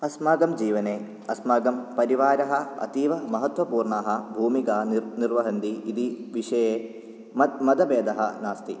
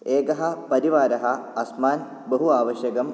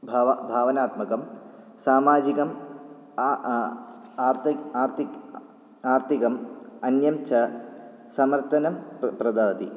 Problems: none marked